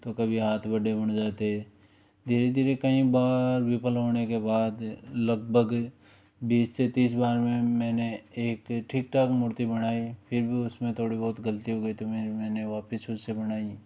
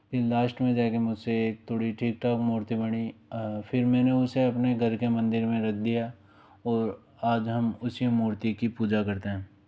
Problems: low volume